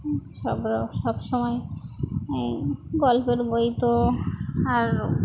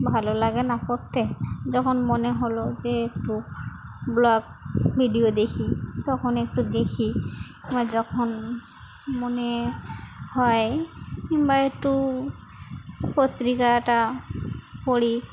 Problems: none marked